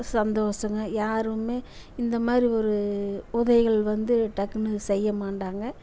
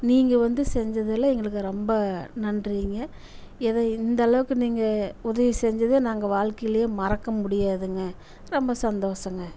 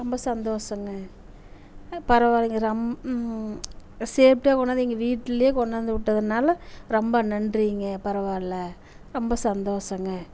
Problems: constant background noise